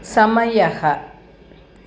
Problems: constant background noise